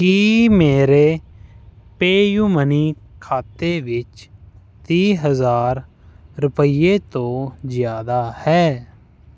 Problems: constant background noise